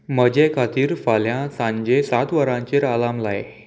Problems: none marked